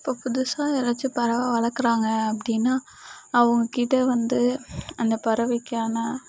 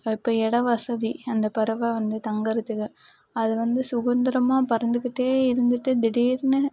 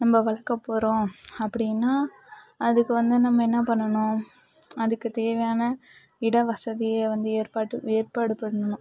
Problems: none marked